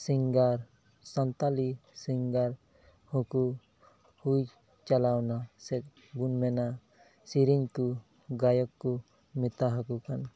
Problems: background sounds at intervals, low volume